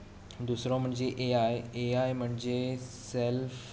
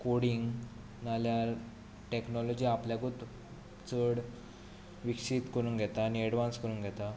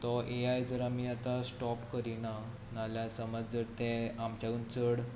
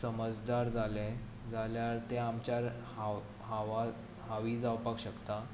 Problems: constant background noise